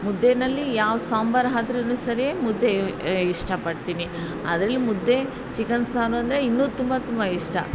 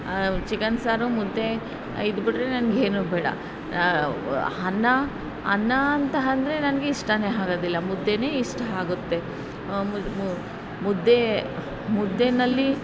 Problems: background sounds at intervals